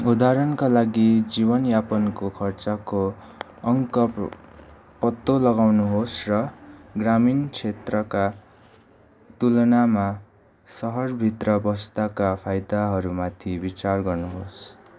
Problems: none marked